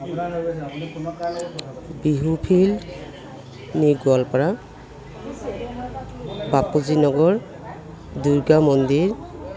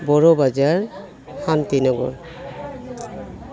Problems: none marked